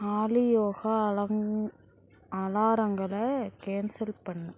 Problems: constant background noise